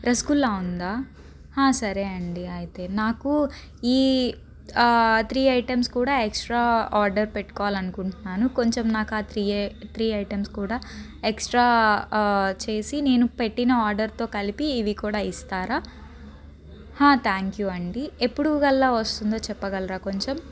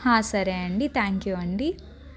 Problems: background conversations at intervals